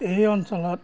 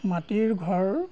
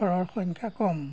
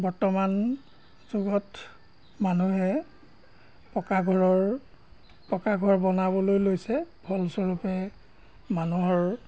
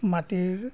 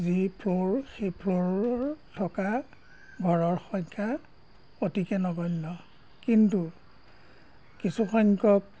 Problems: background sounds at intervals